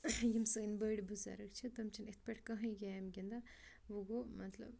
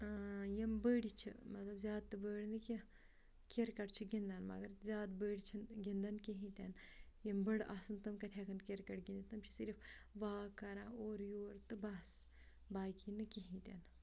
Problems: background sounds at intervals